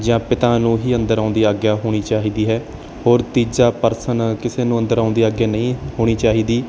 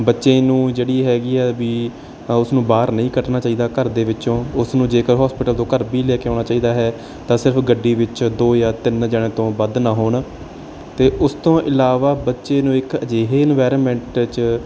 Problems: none marked